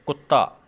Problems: background conversations at intervals